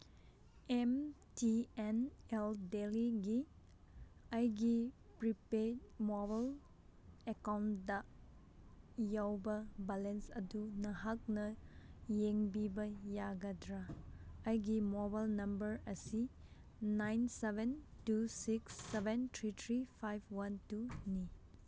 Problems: none marked